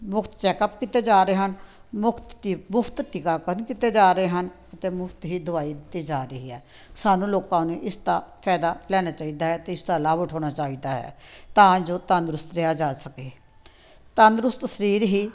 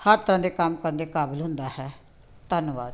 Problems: background sounds at intervals